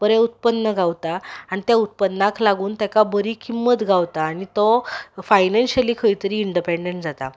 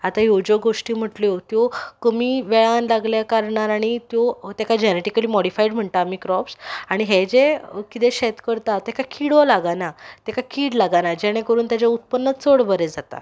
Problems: background sounds at intervals